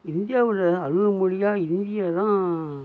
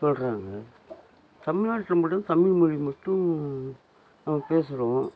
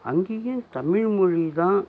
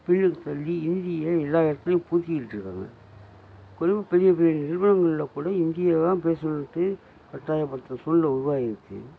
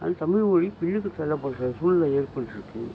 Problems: none marked